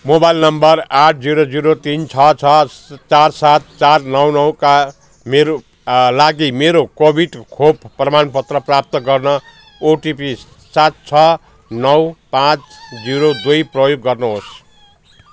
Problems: constant background noise